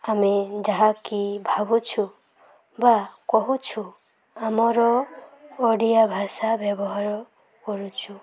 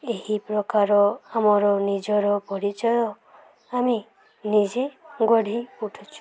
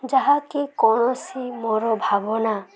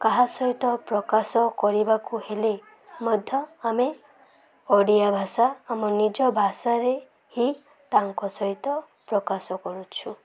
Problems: background sounds at intervals, background conversations at intervals